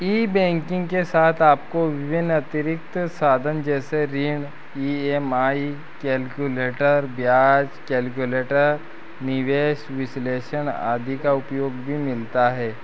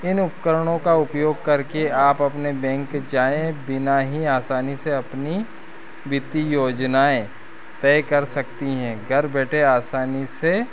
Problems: constant background noise